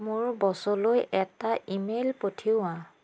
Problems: constant background noise